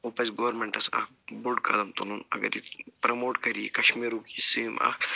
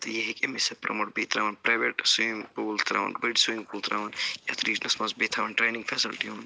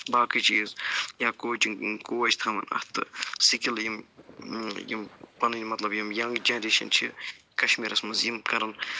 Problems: constant background noise, low volume